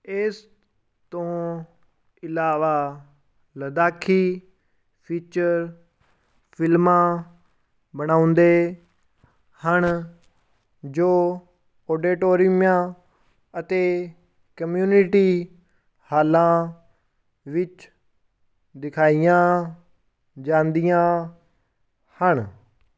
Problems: none marked